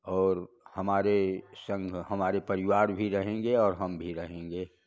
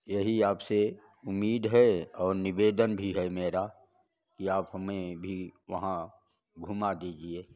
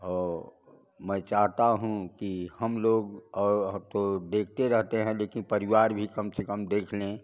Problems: none marked